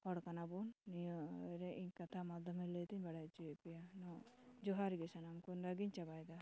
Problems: none marked